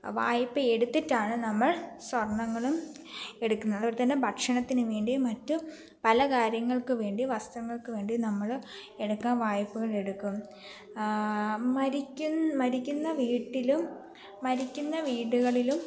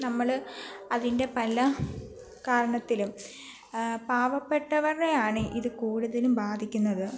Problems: background sounds at intervals